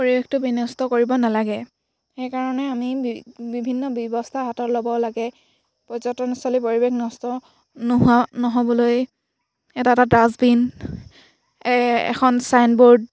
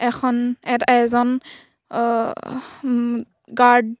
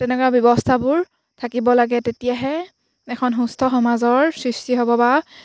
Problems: background sounds at intervals